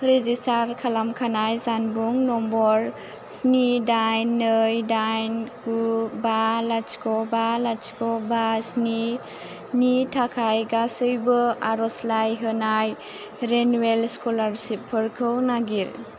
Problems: constant background noise